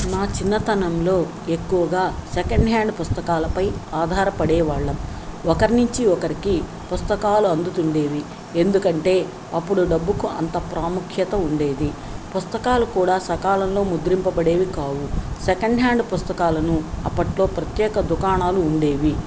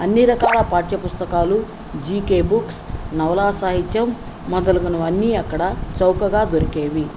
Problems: none marked